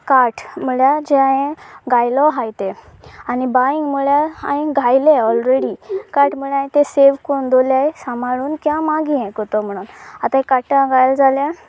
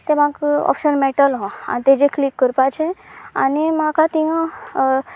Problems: none marked